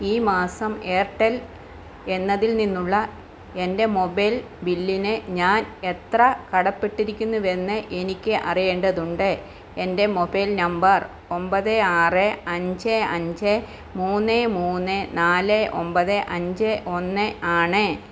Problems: constant background noise